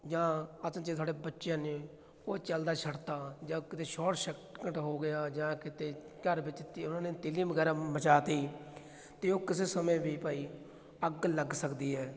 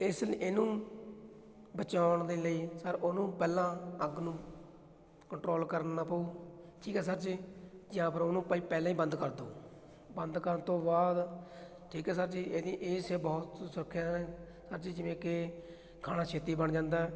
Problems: none marked